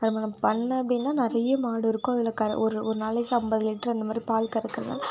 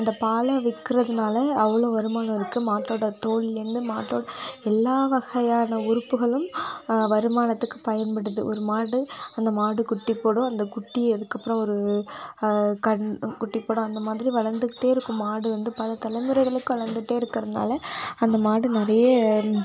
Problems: background sounds at intervals